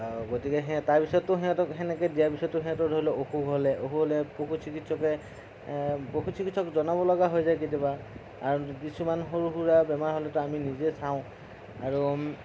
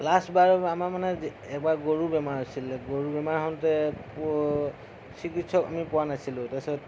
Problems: constant background noise, low volume